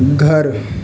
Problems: constant background noise